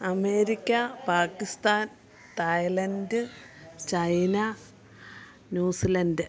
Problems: none marked